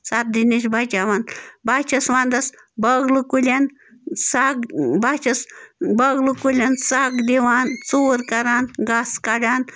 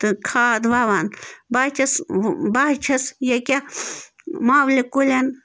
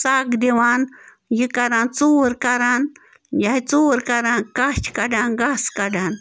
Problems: background sounds at intervals